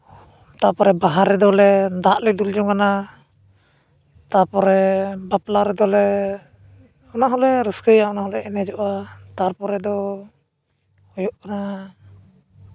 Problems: constant background noise